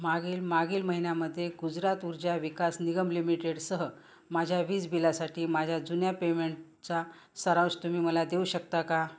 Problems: none marked